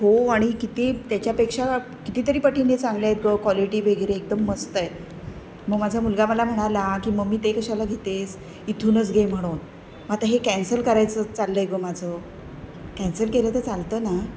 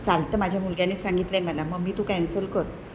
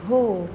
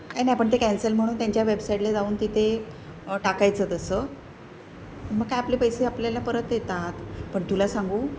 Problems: none marked